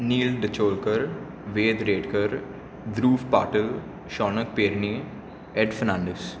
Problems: none marked